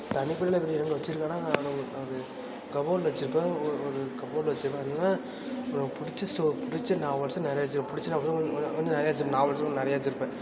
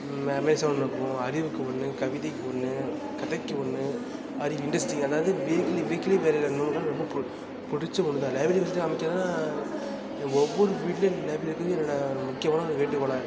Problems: background sounds at intervals